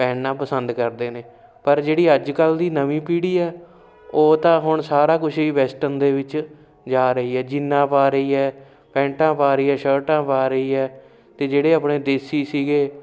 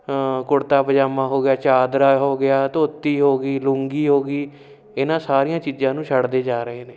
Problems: constant background noise